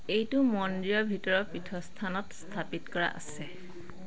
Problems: constant background noise, background conversations at intervals